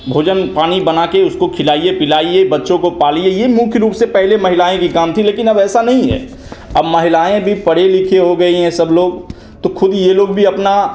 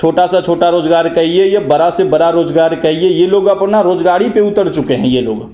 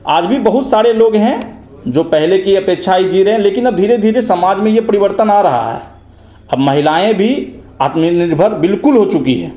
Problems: constant background noise, echo